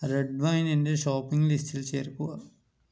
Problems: none marked